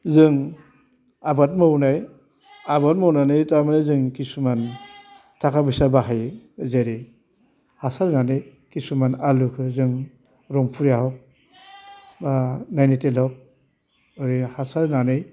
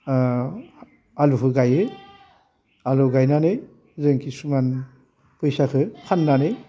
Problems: low volume